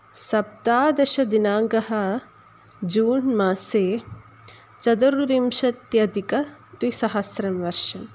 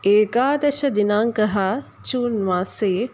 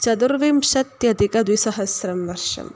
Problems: none marked